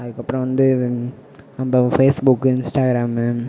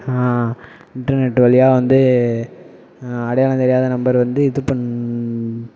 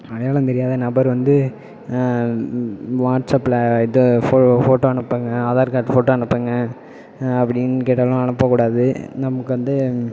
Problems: none marked